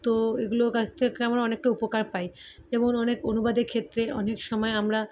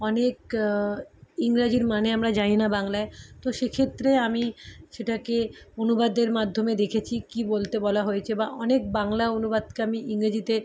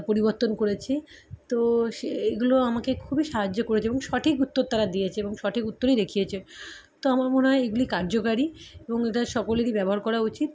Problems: constant background noise